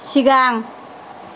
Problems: constant background noise